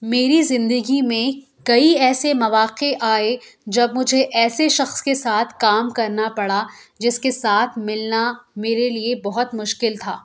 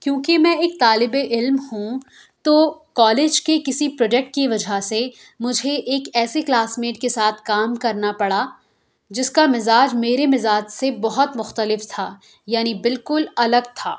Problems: none marked